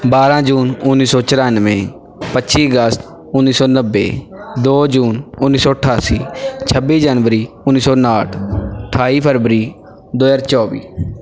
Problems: background sounds at intervals, background conversations at intervals